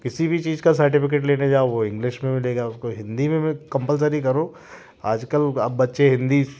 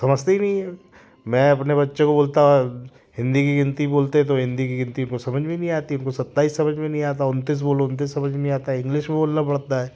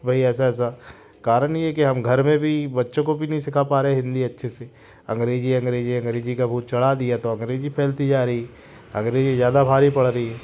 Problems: constant background noise, background conversations at intervals